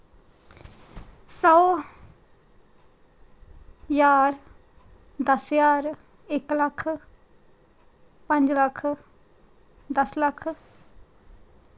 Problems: none marked